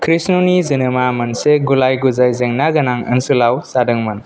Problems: none marked